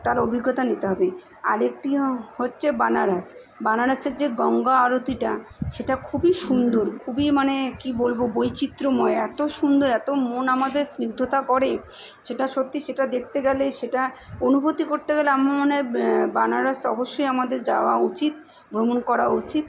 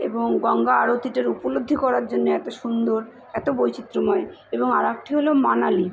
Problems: constant background noise